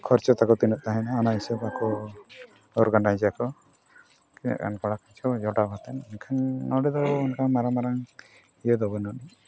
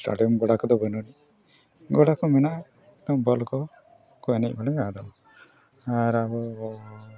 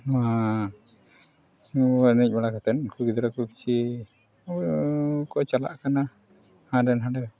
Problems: background sounds at intervals, background conversations at intervals